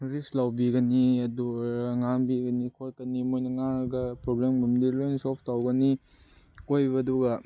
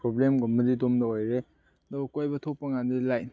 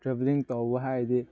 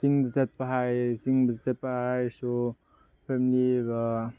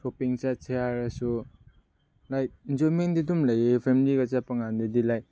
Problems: low volume